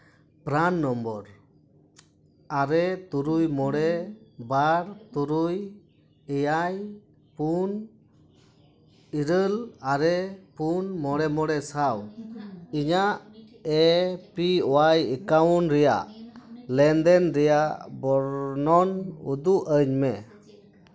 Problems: continuous background conversations